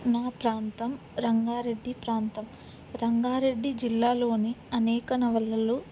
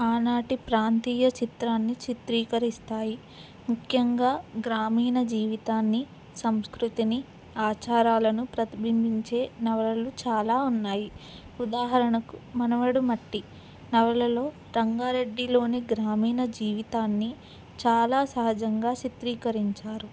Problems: background sounds at intervals